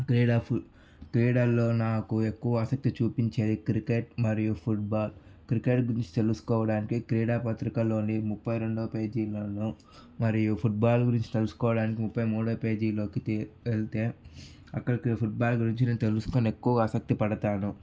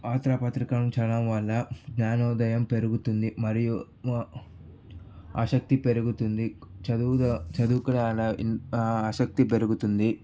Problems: background sounds at intervals